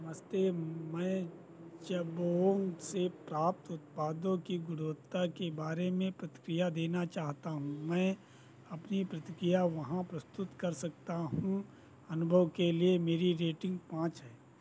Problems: none marked